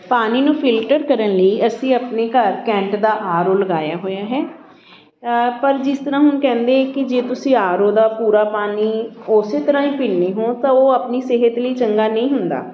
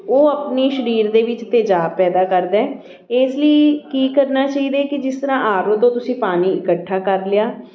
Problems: constant background noise, continuous background conversations